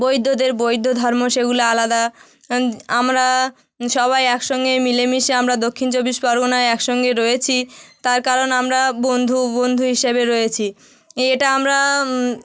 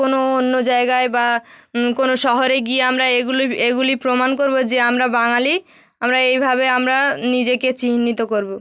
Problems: none marked